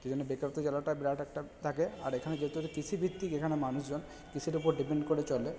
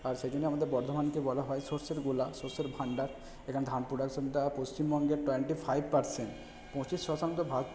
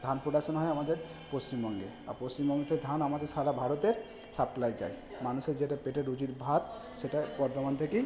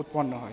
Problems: background sounds at intervals, background conversations at intervals